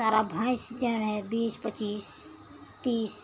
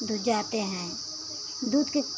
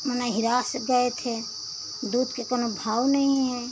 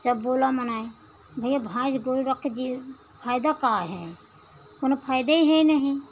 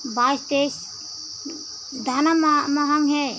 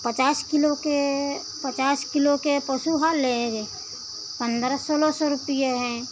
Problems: constant background noise